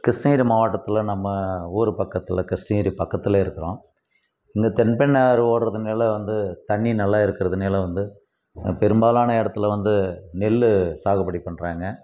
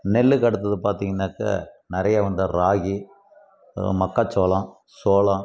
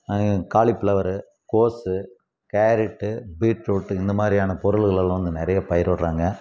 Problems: background sounds at intervals